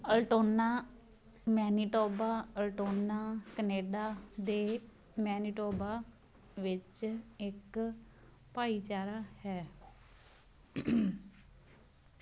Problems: none marked